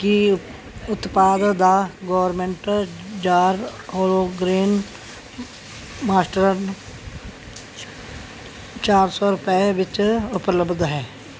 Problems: background sounds at intervals